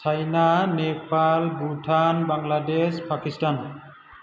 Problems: none marked